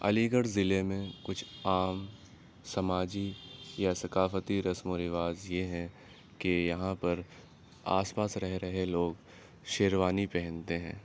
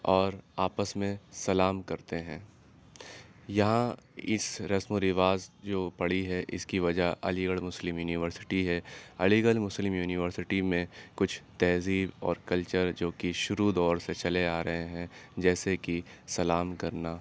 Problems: background sounds at intervals